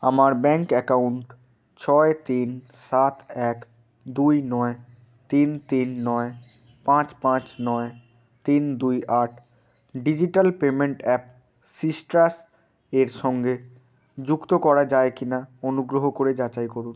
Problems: background sounds at intervals